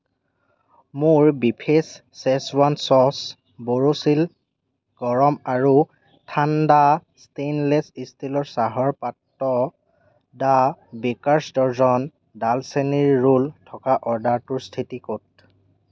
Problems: none marked